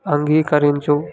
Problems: none marked